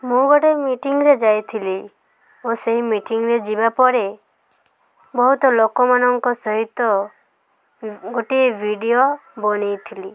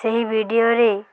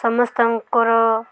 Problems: constant background noise